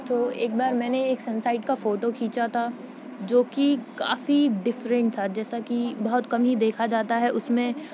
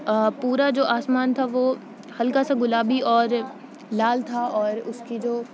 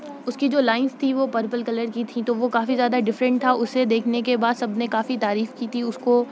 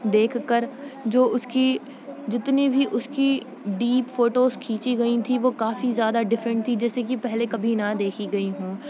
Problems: constant background noise, low volume